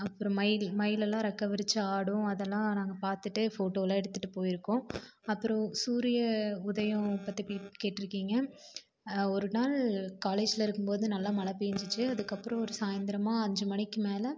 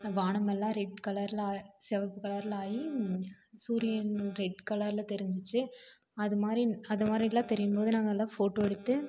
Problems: constant background noise